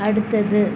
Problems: constant background noise